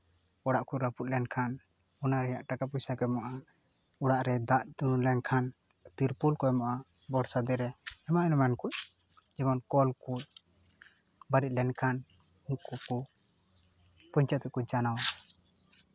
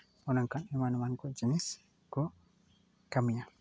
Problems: none marked